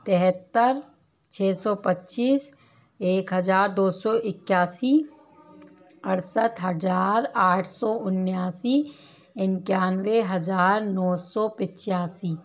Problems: none marked